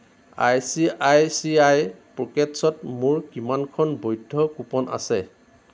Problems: constant background noise